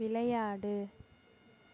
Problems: background sounds at intervals